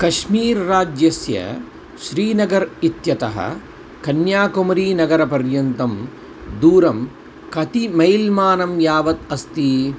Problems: constant background noise